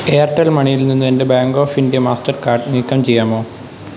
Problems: constant background noise